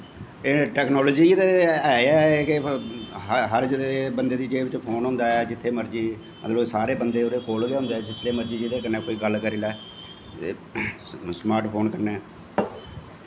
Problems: constant background noise